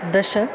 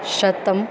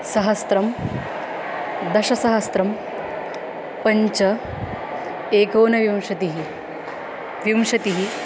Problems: constant background noise